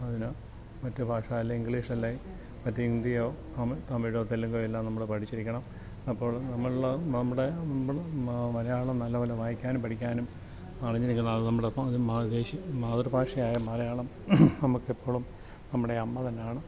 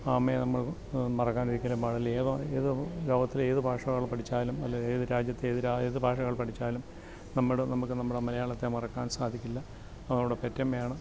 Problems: low volume